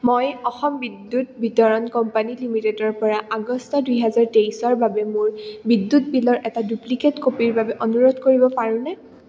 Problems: none marked